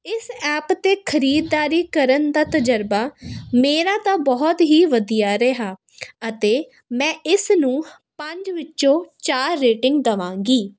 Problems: constant background noise